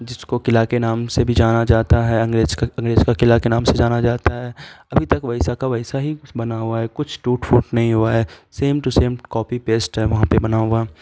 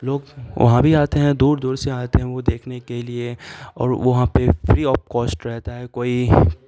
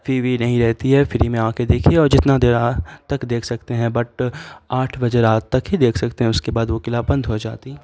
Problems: constant background noise